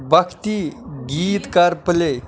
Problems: background sounds at intervals, background conversations at intervals